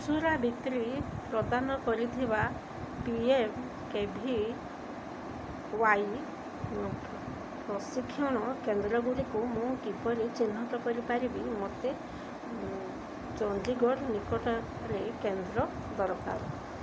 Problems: constant background noise